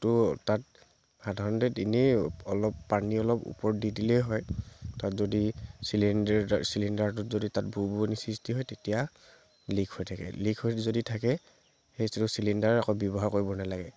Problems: constant background noise